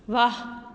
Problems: background sounds at intervals